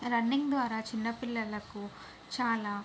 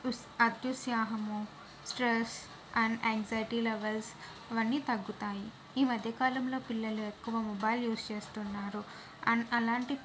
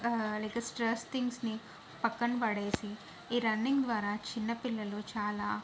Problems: none marked